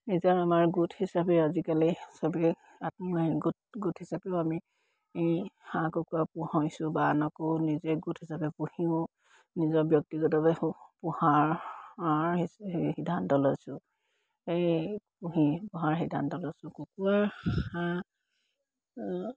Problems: background sounds at intervals